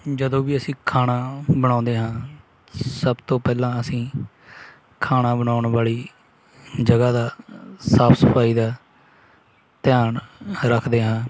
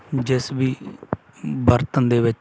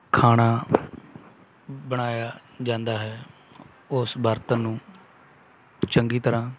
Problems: none marked